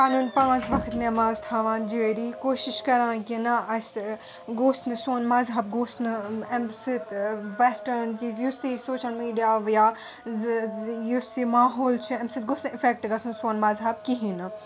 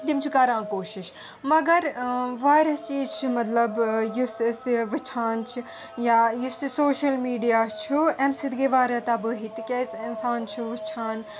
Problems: continuous background conversations